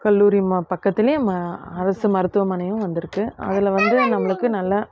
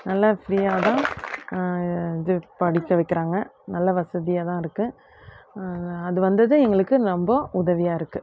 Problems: constant background noise